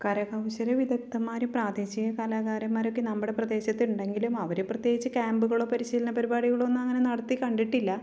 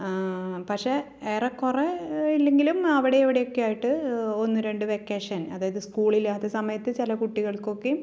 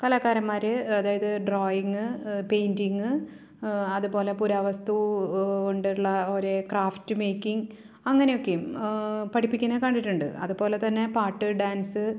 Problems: none marked